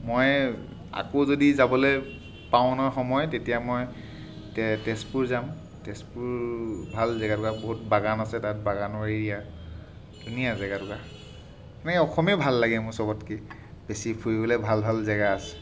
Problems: background sounds at intervals